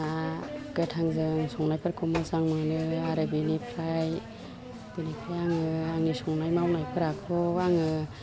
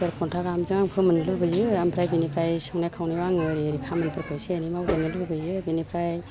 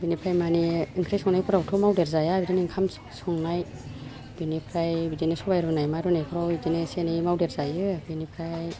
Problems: low volume